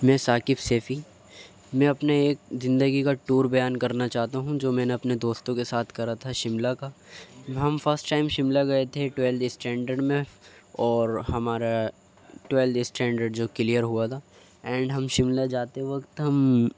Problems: background sounds at intervals, background conversations at intervals